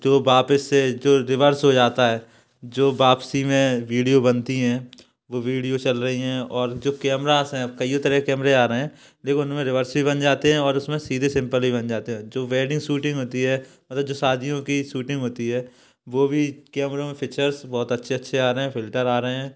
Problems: background sounds at intervals